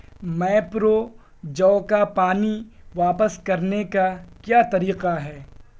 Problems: constant background noise